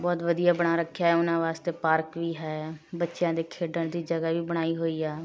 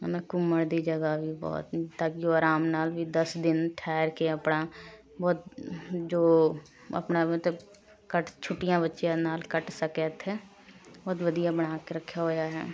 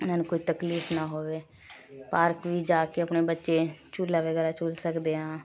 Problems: continuous background conversations